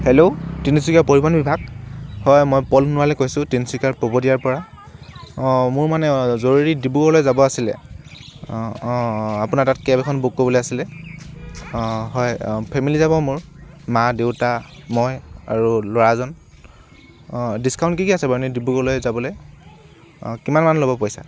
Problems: none marked